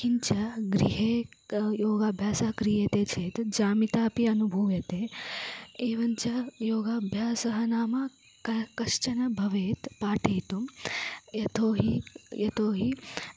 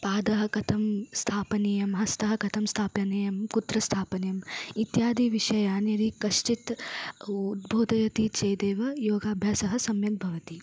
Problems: low volume